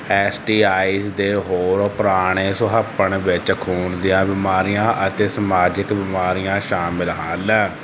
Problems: constant background noise